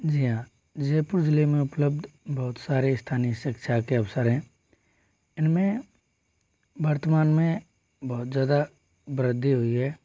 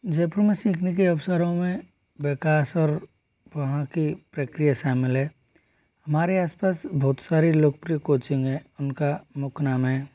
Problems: low volume